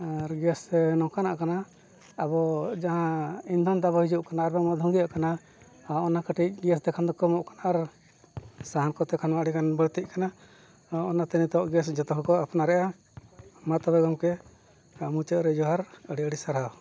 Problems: background sounds at intervals